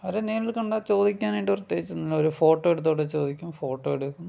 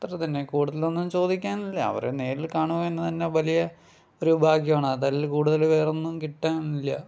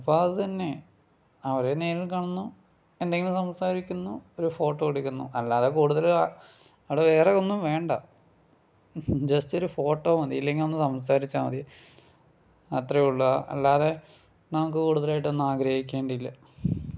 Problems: none marked